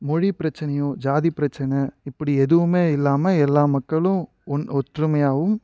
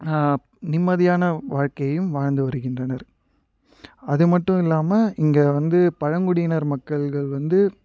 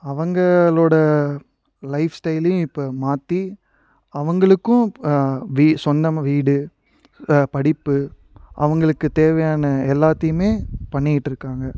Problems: background sounds at intervals